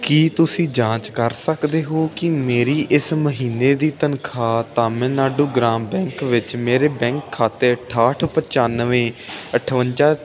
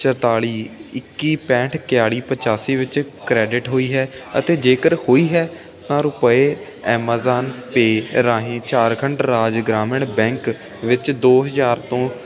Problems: constant background noise